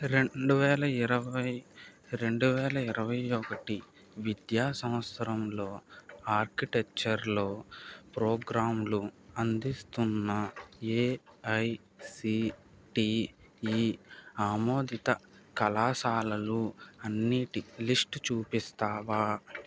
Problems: background sounds at intervals